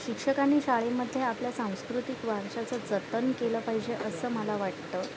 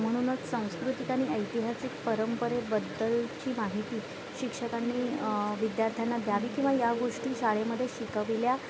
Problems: constant background noise, continuous background conversations